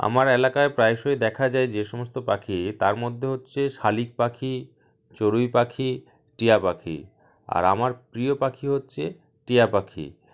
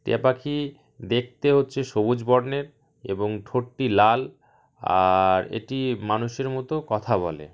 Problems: none marked